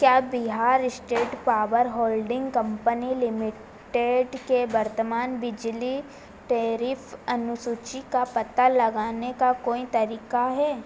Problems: constant background noise